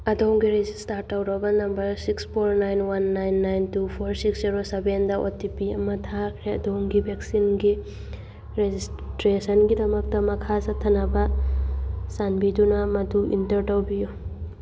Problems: background sounds at intervals